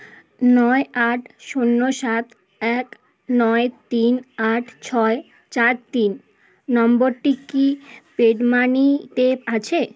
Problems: constant background noise